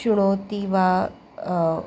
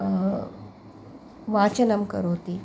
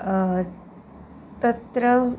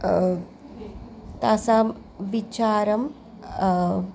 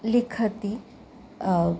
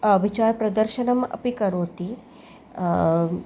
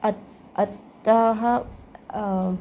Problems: background sounds at intervals